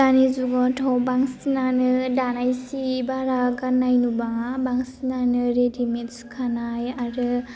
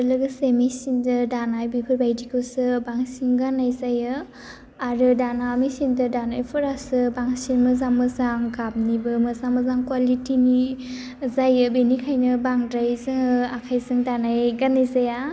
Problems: constant background noise